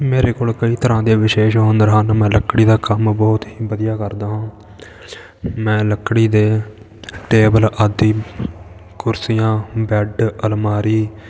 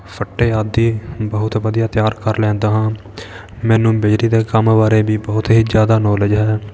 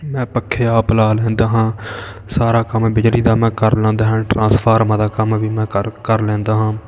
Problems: background sounds at intervals, continuous background conversations